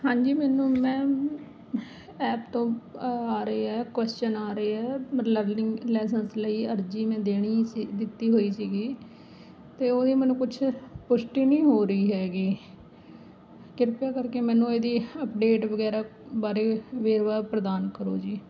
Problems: background sounds at intervals